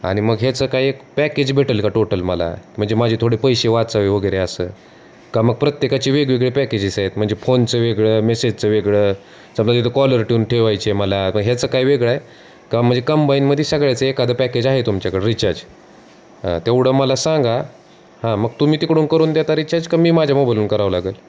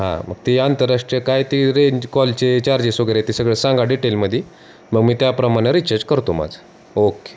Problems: constant background noise